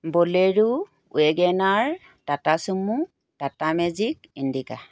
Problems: none marked